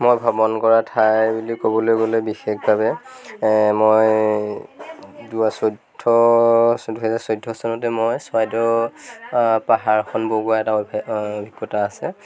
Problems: none marked